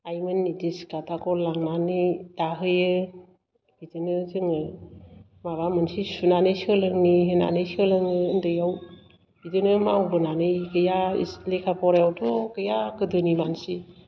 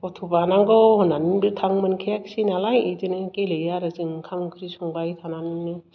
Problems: background sounds at intervals